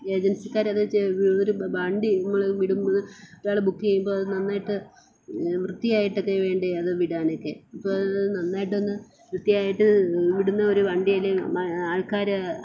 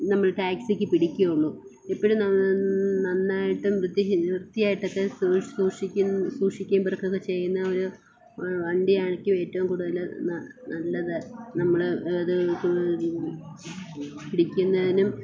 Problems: constant background noise, low volume